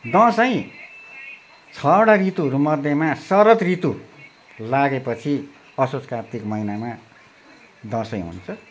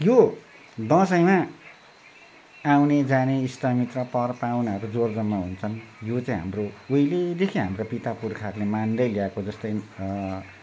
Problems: constant background noise